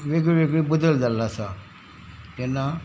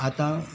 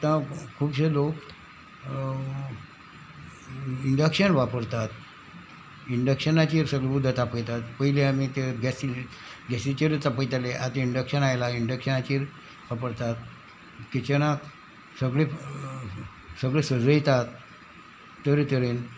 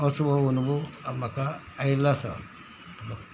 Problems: none marked